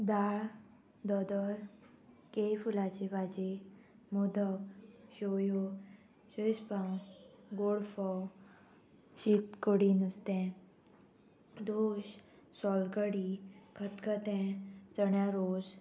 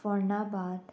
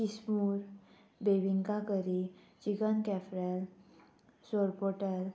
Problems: constant background noise